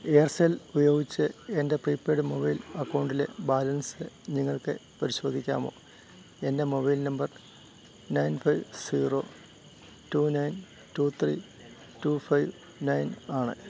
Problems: none marked